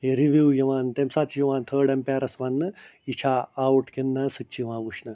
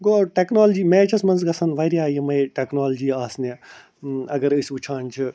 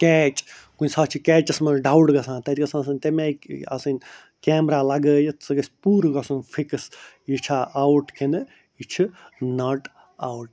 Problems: none marked